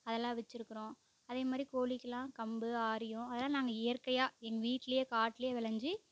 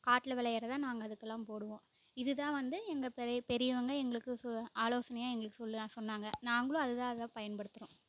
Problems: background sounds at intervals, low volume